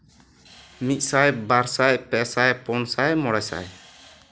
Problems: none marked